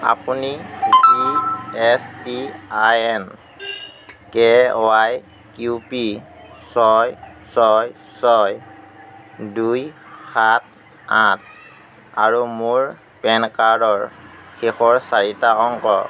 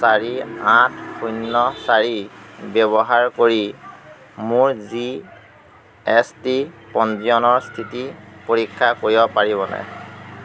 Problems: constant background noise